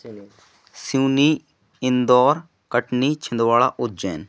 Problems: none marked